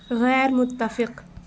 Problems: constant background noise